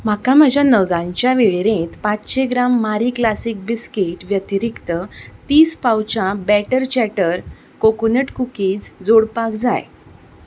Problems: background sounds at intervals